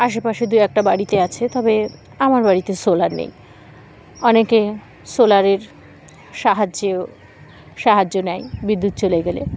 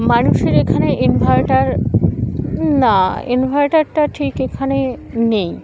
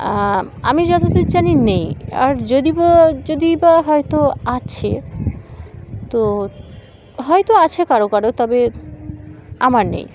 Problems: constant background noise, background conversations at intervals